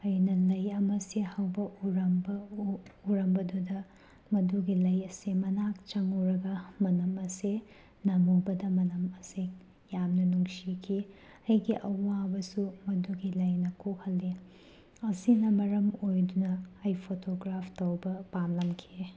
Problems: background sounds at intervals